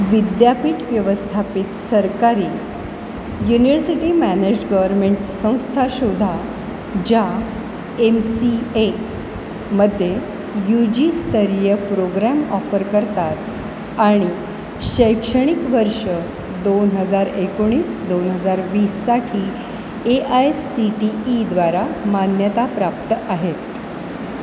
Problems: constant background noise